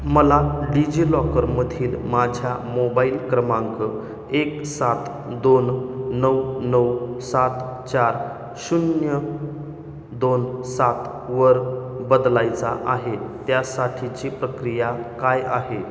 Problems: background sounds at intervals